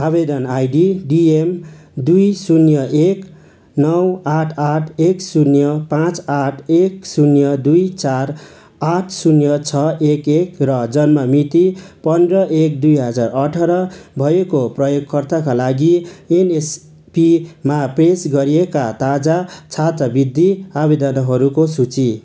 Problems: none marked